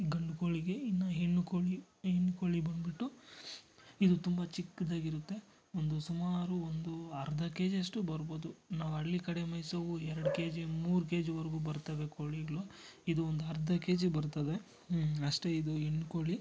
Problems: none marked